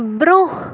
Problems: background sounds at intervals